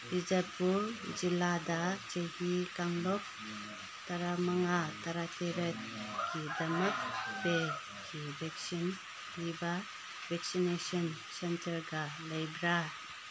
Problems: constant background noise